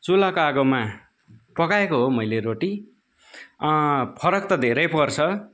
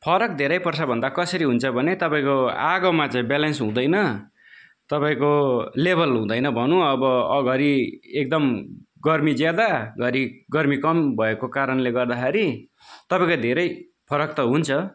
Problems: background conversations at intervals